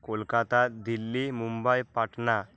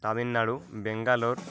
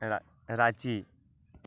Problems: constant background noise